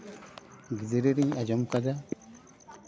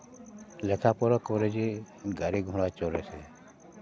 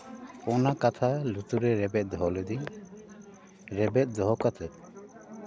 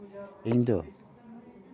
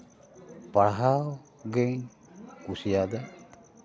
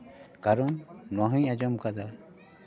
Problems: background sounds at intervals, continuous background conversations